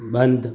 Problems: background sounds at intervals, background conversations at intervals